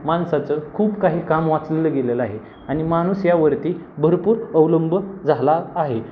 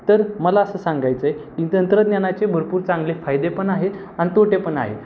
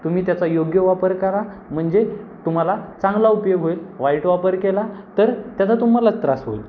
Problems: constant background noise